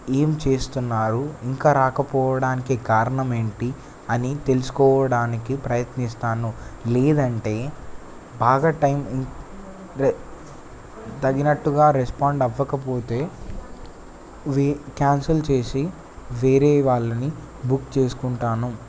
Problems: constant background noise